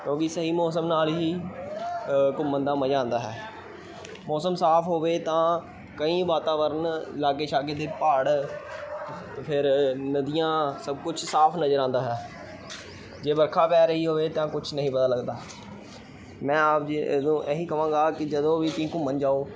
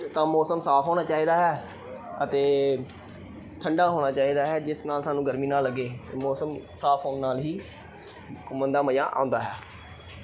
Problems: background sounds at intervals, background conversations at intervals